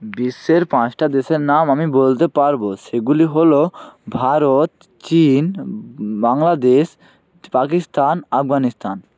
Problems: none marked